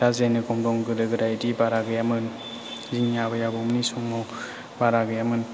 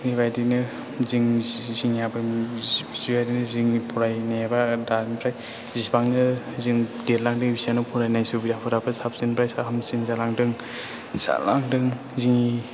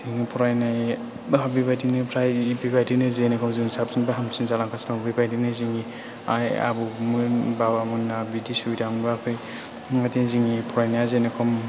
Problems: background sounds at intervals